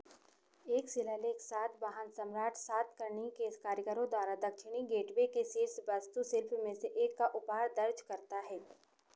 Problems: constant background noise, echo